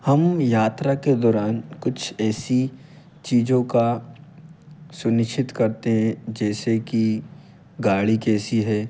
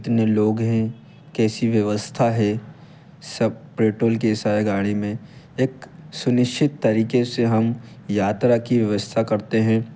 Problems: constant background noise